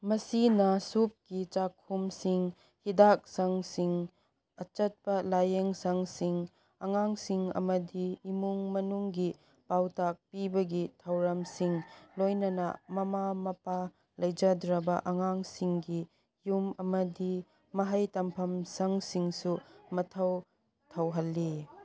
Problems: background sounds at intervals